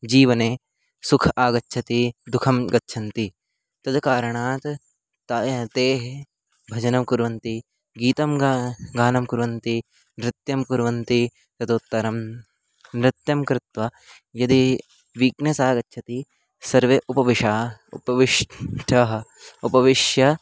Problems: none marked